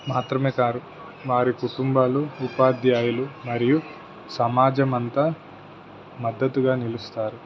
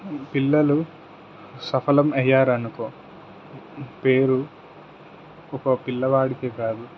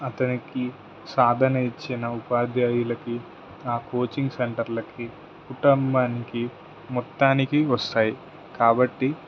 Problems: none marked